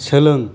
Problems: none marked